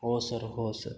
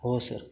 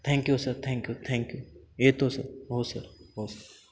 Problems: background sounds at intervals